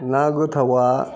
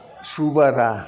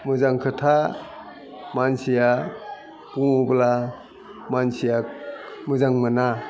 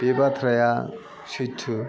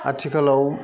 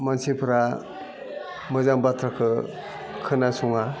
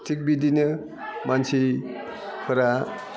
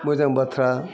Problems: constant background noise